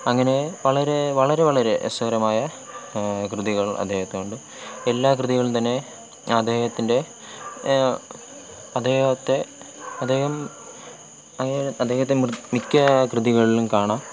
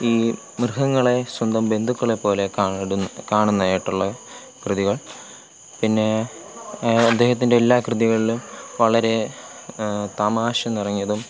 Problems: constant background noise